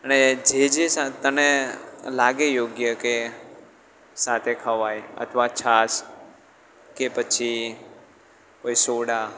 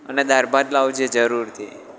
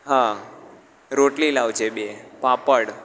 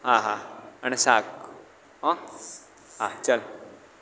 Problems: background sounds at intervals